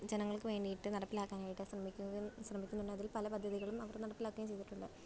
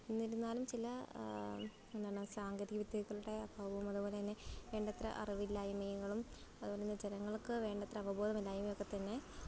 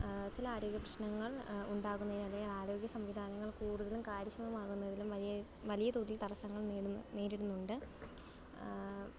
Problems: background sounds at intervals